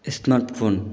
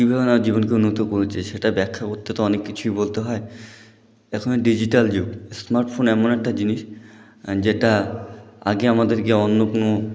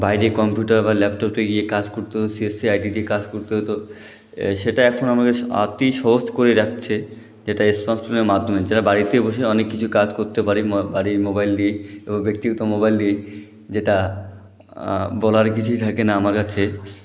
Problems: none marked